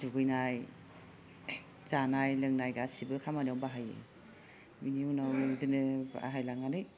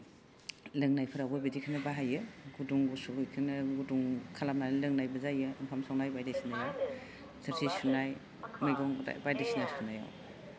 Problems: background conversations at intervals